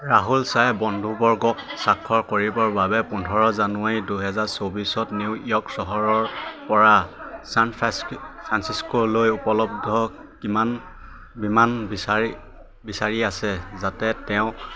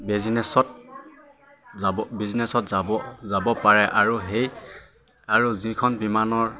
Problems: constant background noise, continuous background conversations